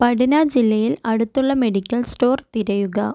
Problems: none marked